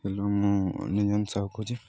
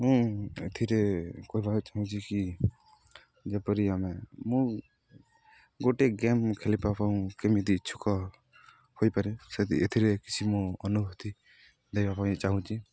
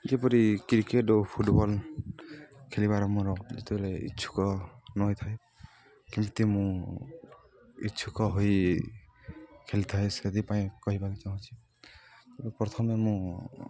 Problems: none marked